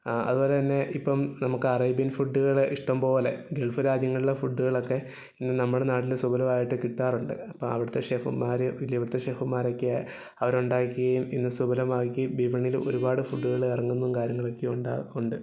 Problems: background sounds at intervals